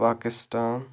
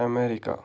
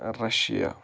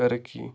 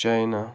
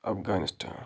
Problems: none marked